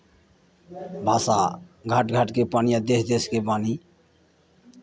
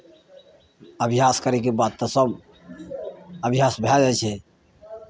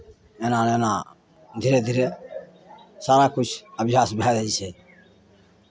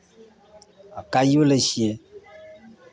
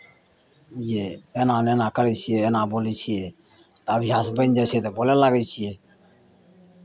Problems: none marked